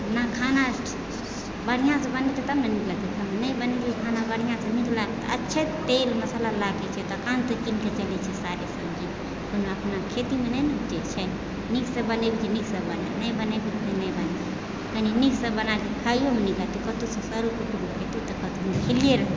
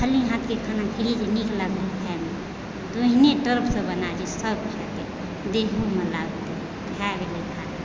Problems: background sounds at intervals, background conversations at intervals